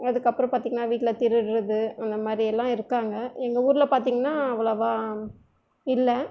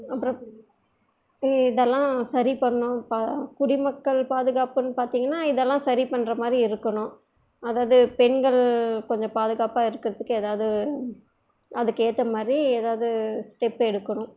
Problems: none marked